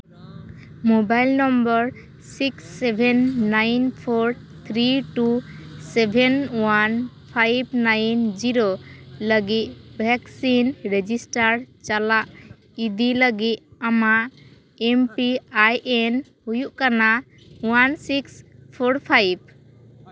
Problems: background sounds at intervals, background conversations at intervals